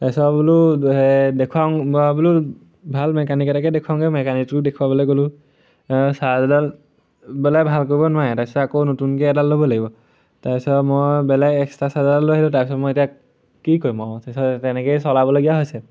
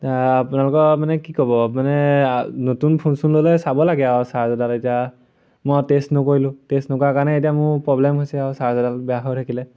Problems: none marked